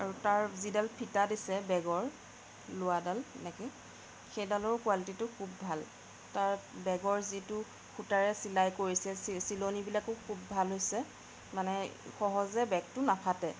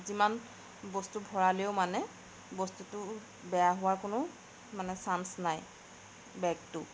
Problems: background sounds at intervals, background conversations at intervals